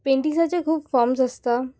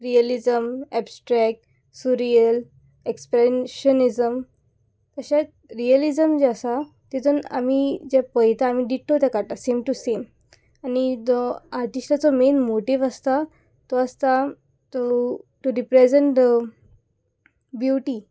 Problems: background sounds at intervals